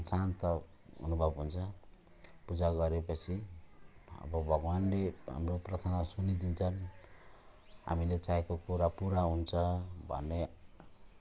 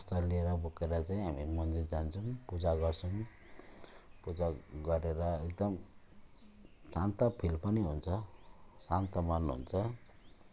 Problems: constant background noise